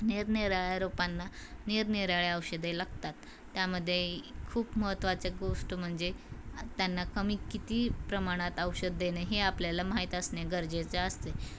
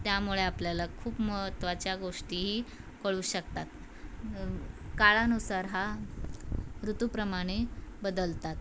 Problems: constant background noise, background conversations at intervals